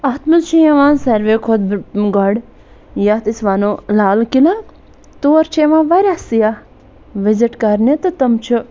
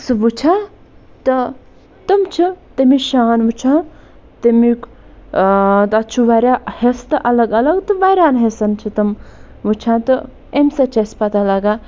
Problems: none marked